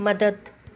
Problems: constant background noise